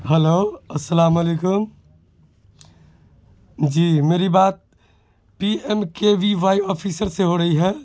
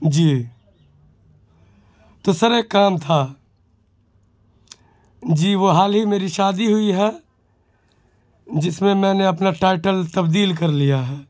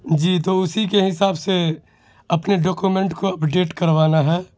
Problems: constant background noise